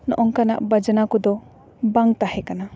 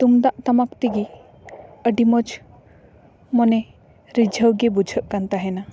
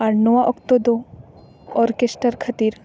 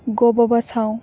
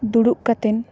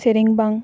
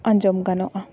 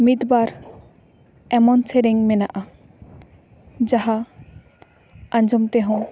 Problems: background sounds at intervals, background conversations at intervals